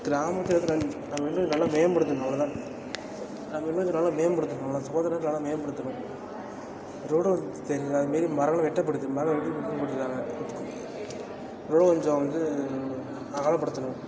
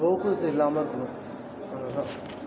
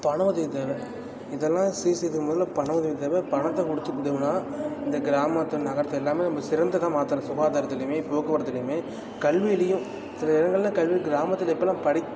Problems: constant background noise, continuous background conversations